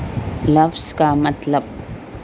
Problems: constant background noise